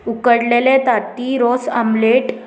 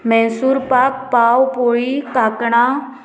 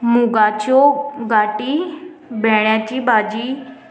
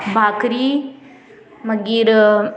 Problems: constant background noise